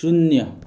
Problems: none marked